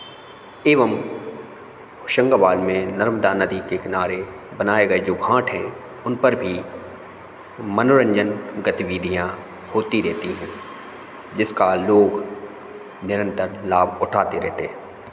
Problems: none marked